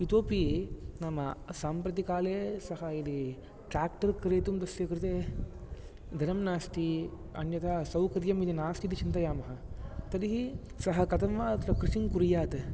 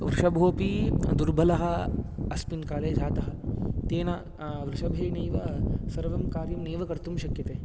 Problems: background sounds at intervals